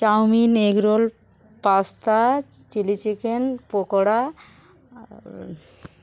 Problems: continuous background conversations